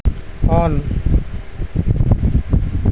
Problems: constant background noise